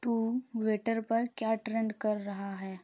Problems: none marked